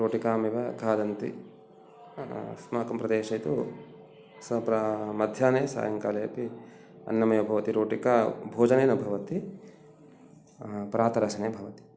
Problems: none marked